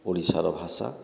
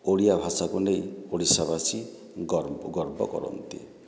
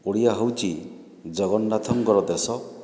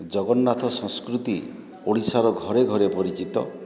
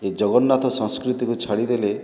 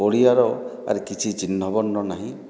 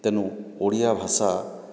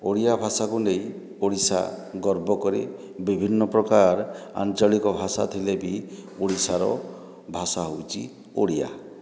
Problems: background sounds at intervals